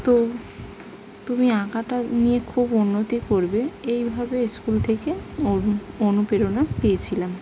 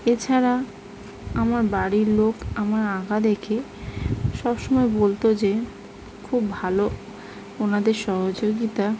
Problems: constant background noise